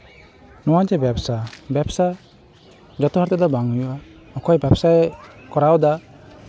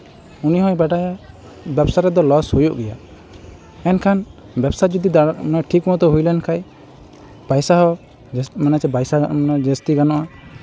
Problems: constant background noise, continuous background conversations